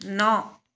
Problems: none marked